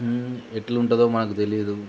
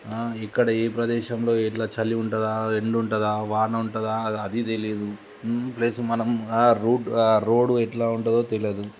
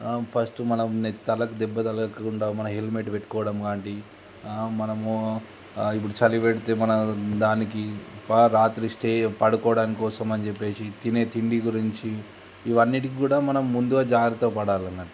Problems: constant background noise